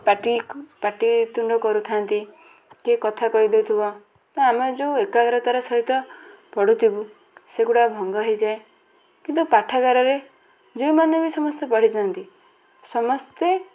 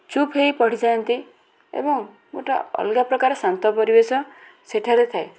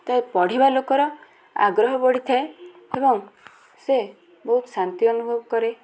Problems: constant background noise, continuous background conversations